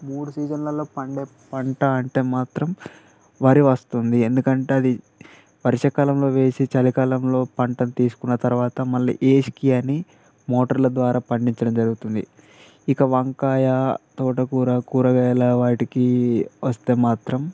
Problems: constant background noise